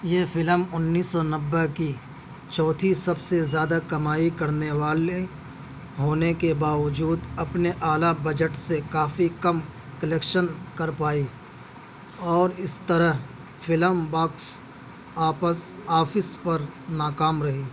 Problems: none marked